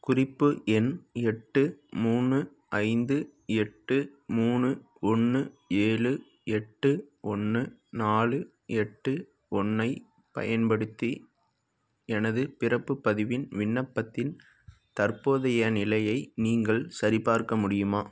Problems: background sounds at intervals